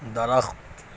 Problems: constant background noise